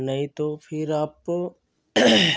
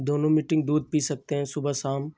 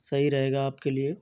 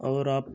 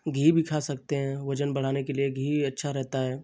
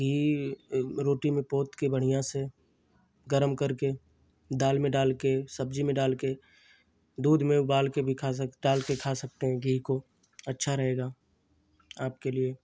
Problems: constant background noise